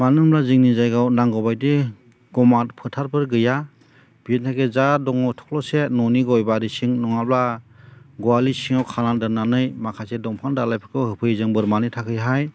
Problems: none marked